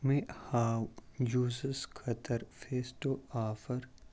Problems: background sounds at intervals